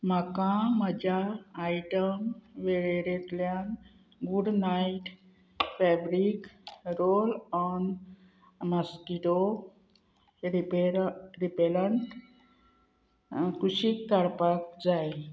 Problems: background sounds at intervals